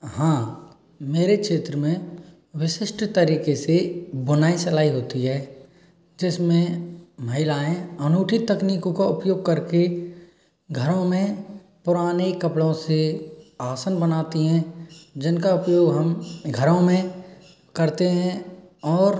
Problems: background sounds at intervals